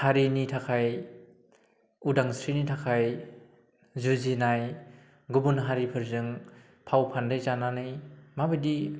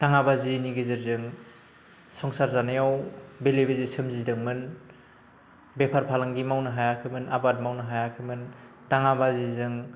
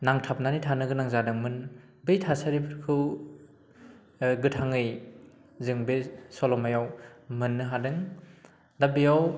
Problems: constant background noise